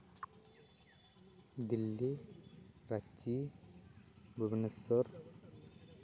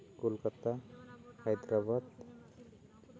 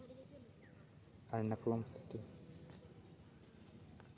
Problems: constant background noise, low volume